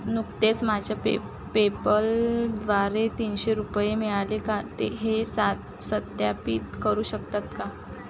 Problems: none marked